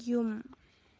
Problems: low volume